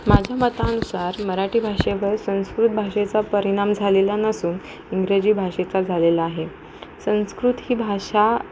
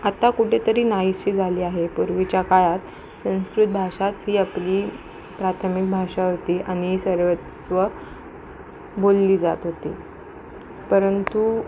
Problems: constant background noise